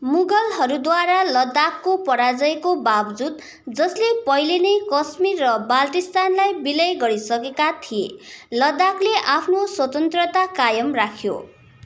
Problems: none marked